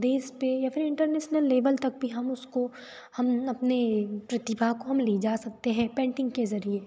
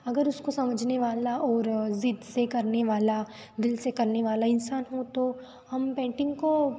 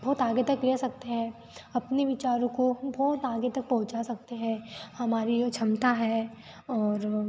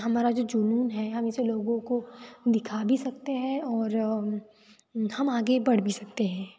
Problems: constant background noise